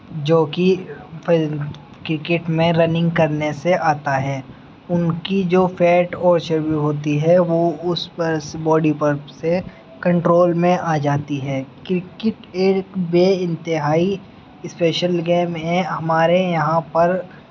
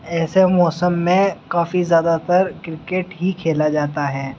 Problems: background sounds at intervals, background conversations at intervals